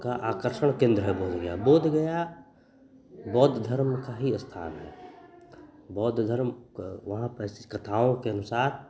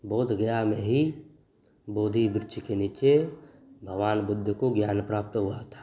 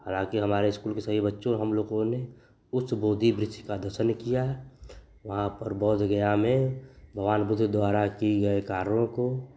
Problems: constant background noise, continuous background conversations